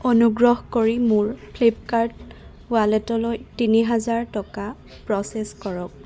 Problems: constant background noise, background conversations at intervals